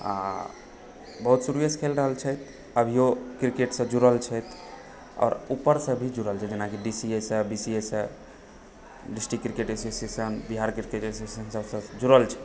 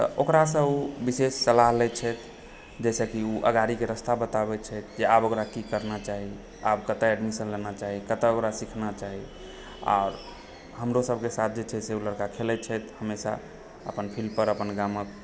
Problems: background sounds at intervals